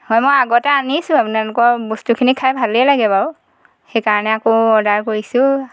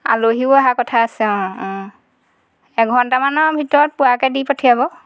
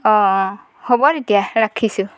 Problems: none marked